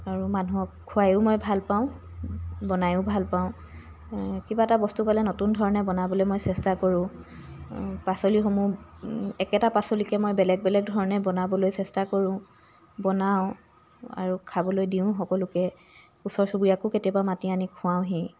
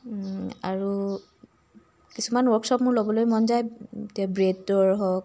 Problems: constant background noise